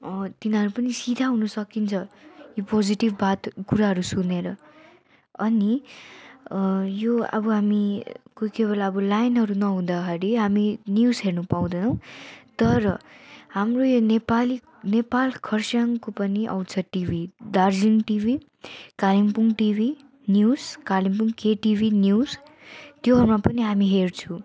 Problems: constant background noise